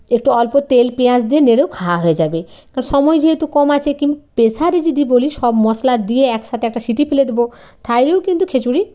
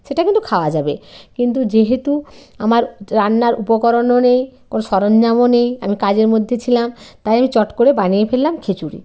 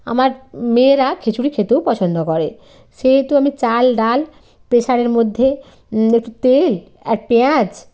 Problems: constant background noise